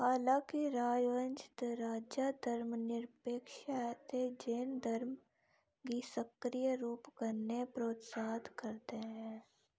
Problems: low volume